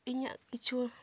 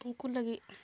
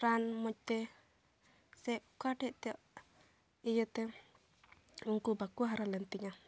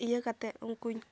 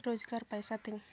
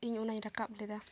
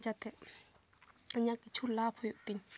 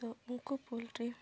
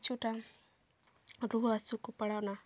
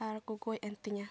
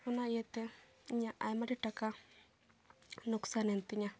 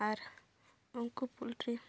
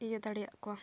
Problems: background sounds at intervals